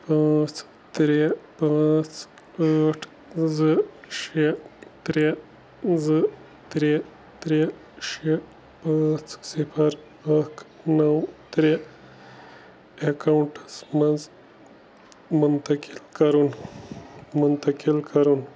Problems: background sounds at intervals